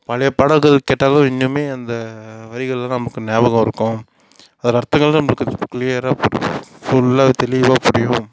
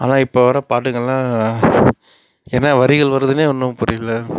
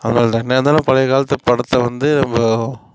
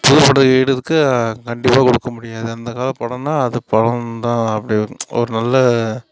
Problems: background sounds at intervals, background conversations at intervals